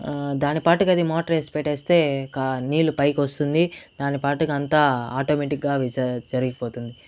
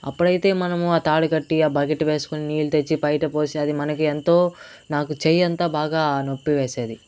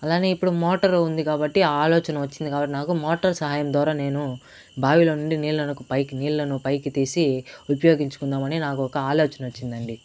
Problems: constant background noise